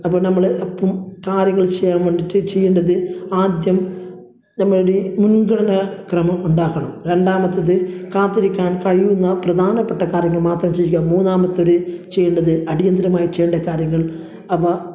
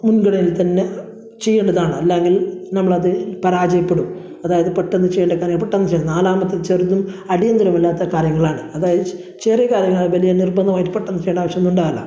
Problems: none marked